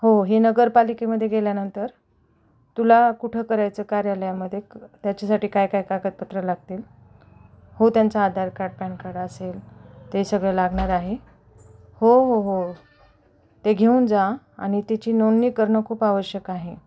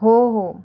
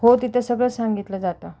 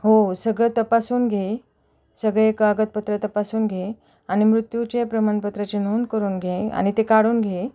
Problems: none marked